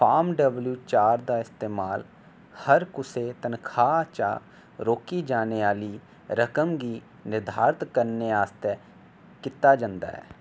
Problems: none marked